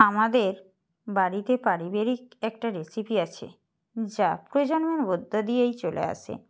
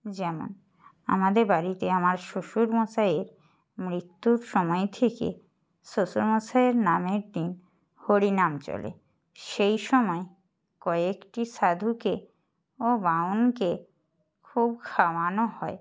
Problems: none marked